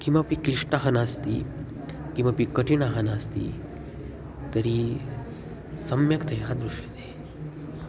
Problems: none marked